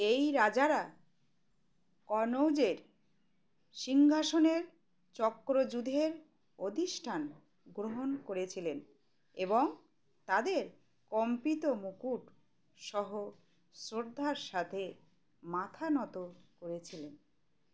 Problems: constant background noise